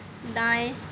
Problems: background sounds at intervals